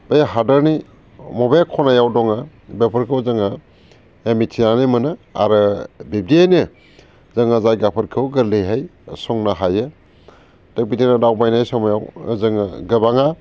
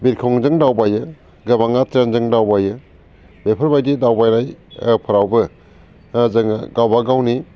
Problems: constant background noise